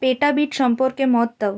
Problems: none marked